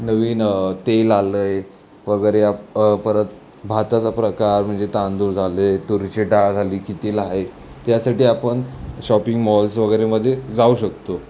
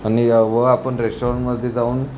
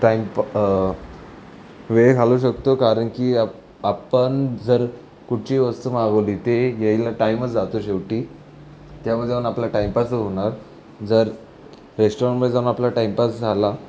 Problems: none marked